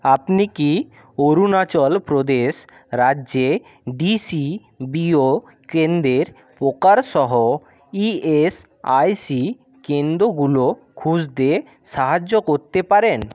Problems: background sounds at intervals